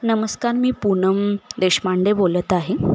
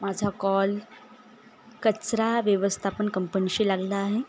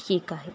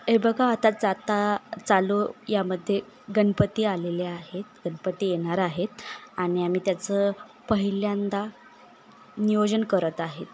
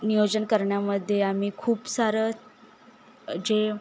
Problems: constant background noise, background conversations at intervals, echo